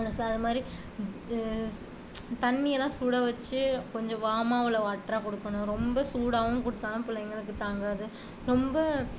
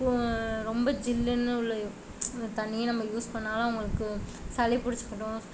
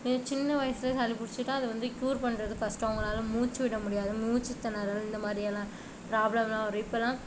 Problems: constant background noise